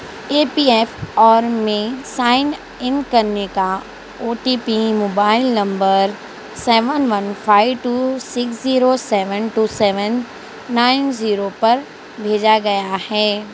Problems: constant background noise